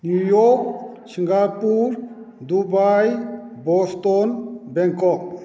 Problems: echo